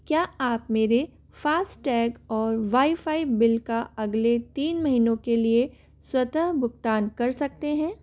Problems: none marked